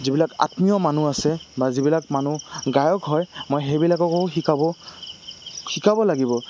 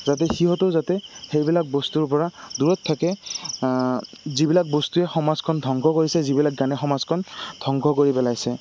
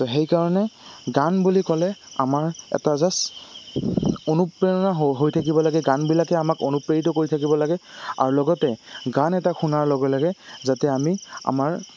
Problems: constant background noise